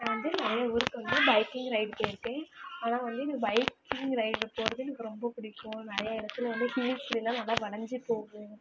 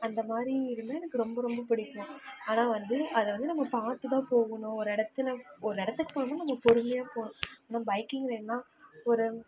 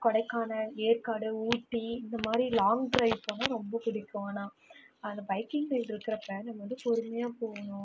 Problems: background sounds at intervals, low volume